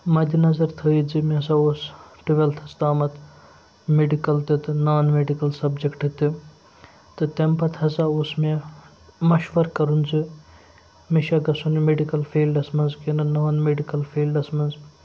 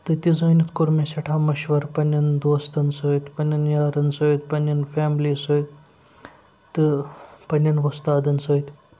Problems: background sounds at intervals